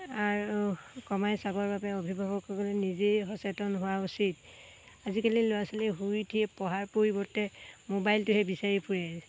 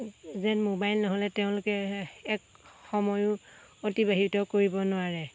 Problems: background sounds at intervals